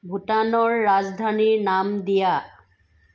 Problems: background sounds at intervals